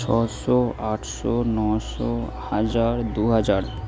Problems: constant background noise